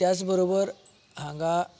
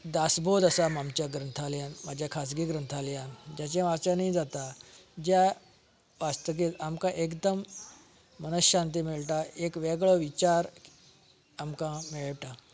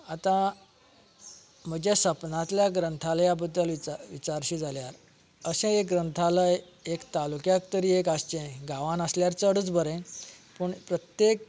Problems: none marked